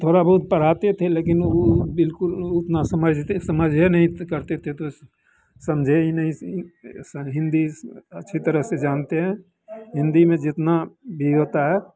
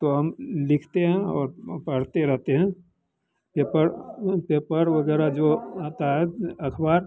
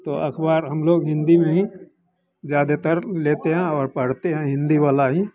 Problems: constant background noise